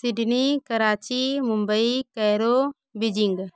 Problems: background sounds at intervals, continuous background conversations